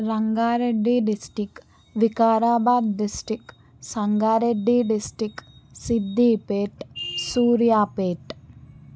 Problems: background sounds at intervals